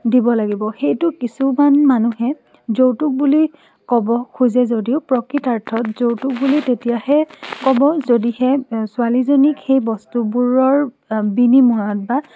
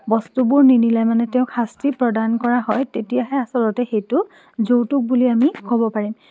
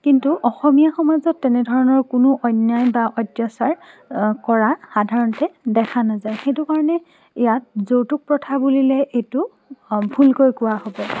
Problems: none marked